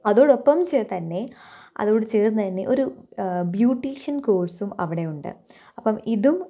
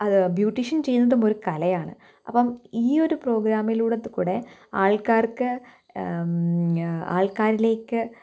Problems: none marked